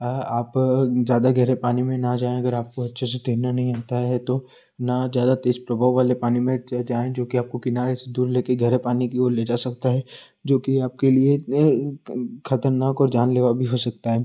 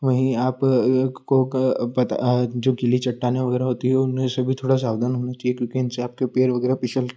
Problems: constant background noise